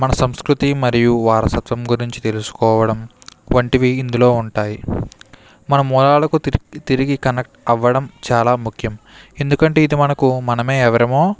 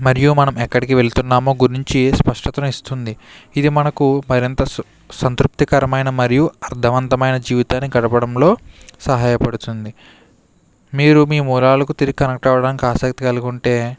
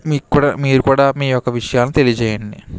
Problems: background sounds at intervals